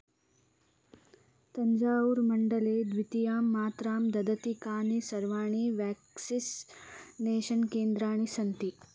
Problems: none marked